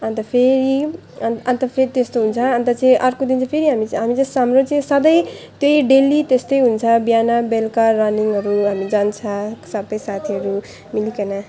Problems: none marked